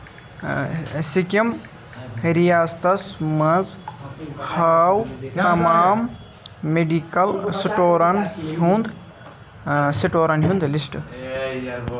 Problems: constant background noise, continuous background conversations